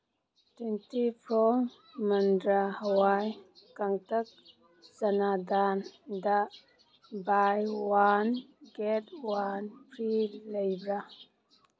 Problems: background sounds at intervals